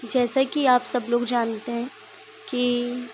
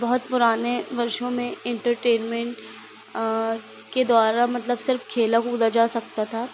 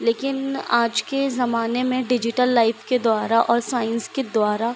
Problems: constant background noise